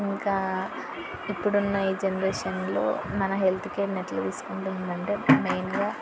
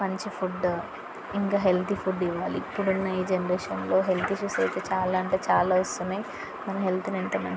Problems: constant background noise, background conversations at intervals